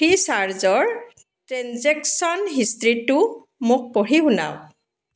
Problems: none marked